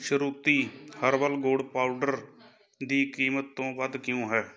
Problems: continuous background conversations